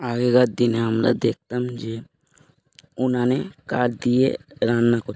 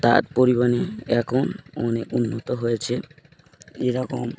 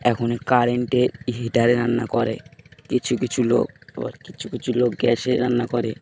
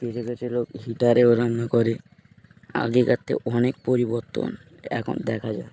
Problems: constant background noise